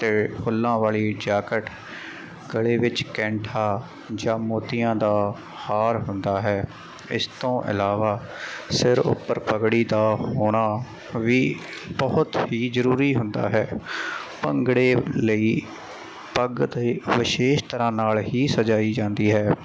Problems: none marked